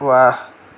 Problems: background sounds at intervals